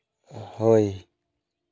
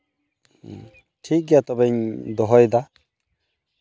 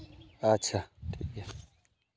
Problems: constant background noise, continuous background conversations